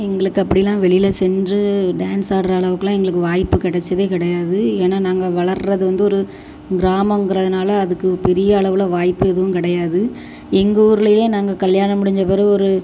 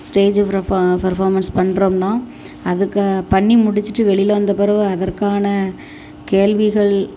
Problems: constant background noise